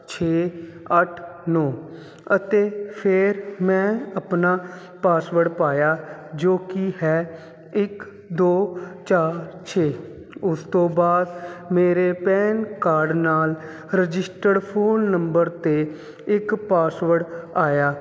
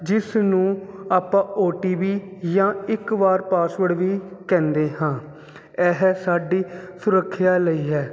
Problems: constant background noise